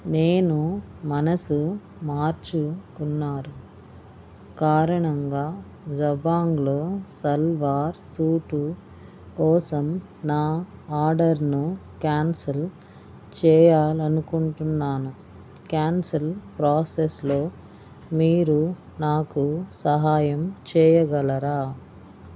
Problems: none marked